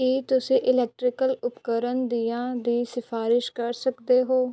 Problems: none marked